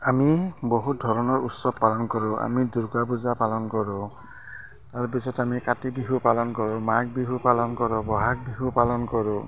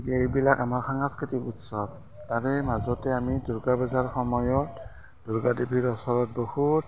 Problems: constant background noise, continuous background conversations